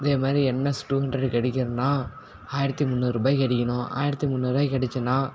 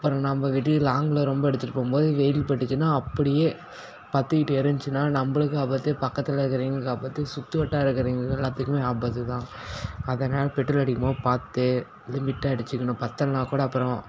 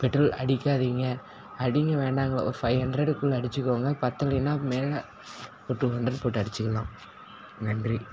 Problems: background sounds at intervals